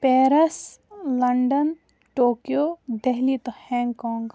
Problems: none marked